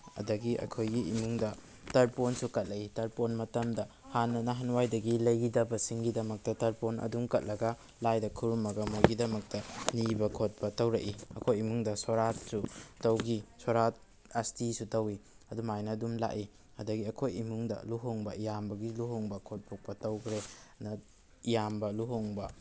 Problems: background conversations at intervals